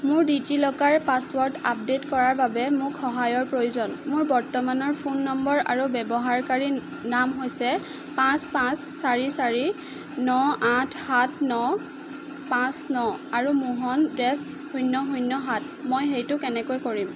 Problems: constant background noise